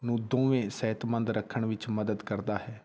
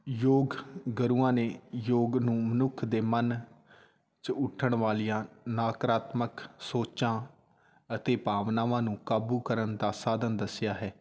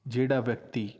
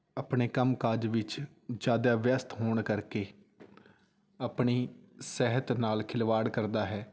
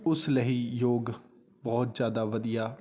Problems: none marked